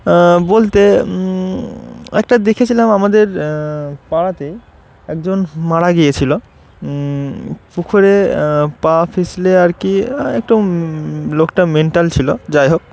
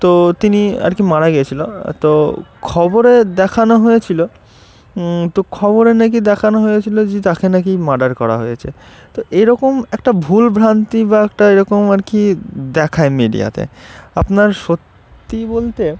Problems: none marked